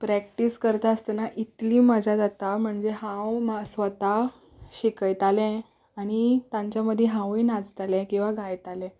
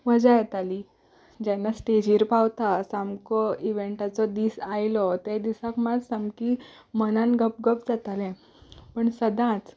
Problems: background sounds at intervals